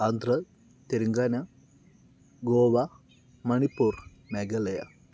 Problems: low volume